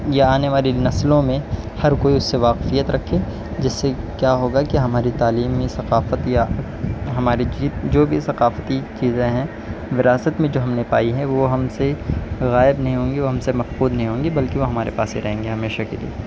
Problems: none marked